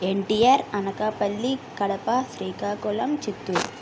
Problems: constant background noise